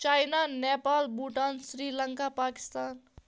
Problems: none marked